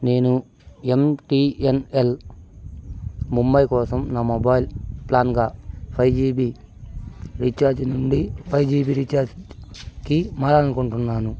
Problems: none marked